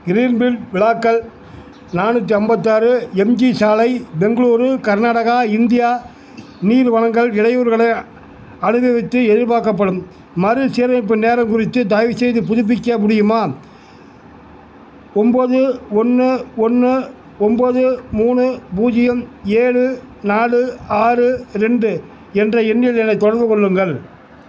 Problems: none marked